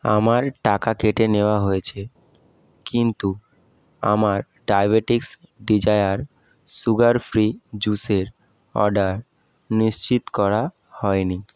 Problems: none marked